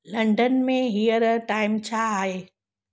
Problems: none marked